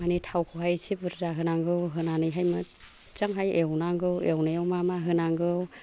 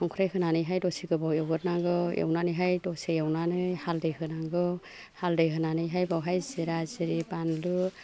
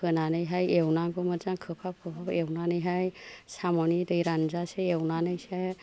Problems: background conversations at intervals